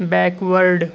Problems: constant background noise, low volume